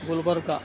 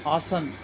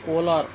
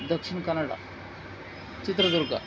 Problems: none marked